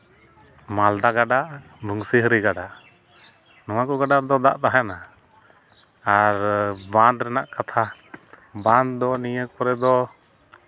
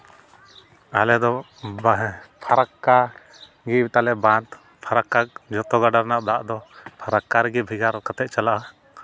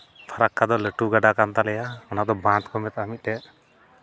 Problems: background sounds at intervals